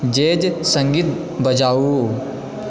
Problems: constant background noise